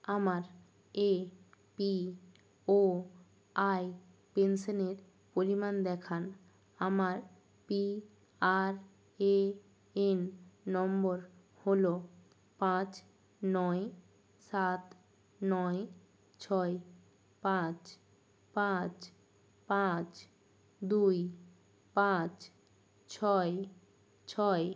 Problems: none marked